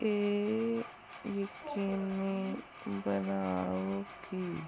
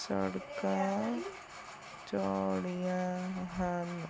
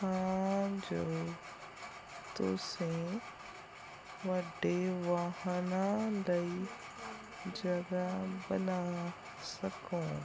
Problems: background sounds at intervals